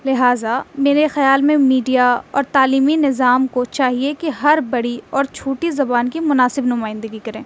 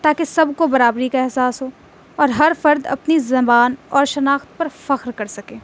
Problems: constant background noise